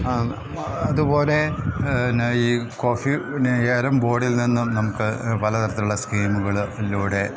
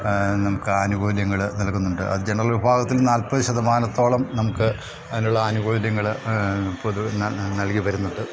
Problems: background sounds at intervals